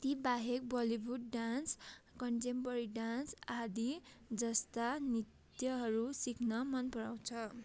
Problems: constant background noise